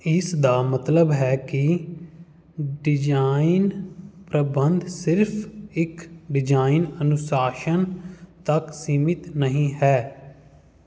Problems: background sounds at intervals